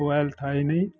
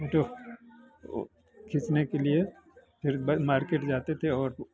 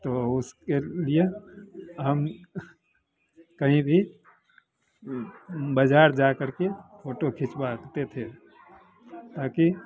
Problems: none marked